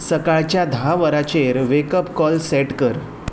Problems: background sounds at intervals